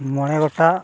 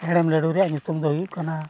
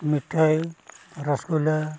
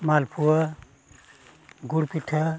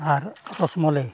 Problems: background sounds at intervals, background conversations at intervals